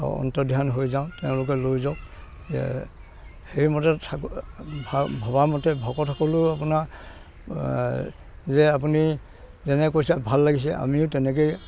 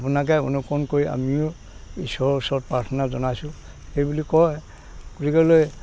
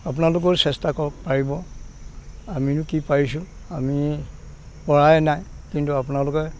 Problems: constant background noise